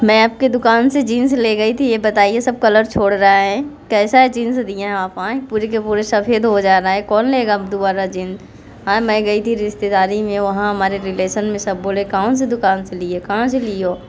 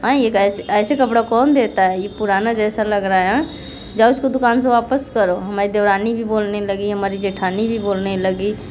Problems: none marked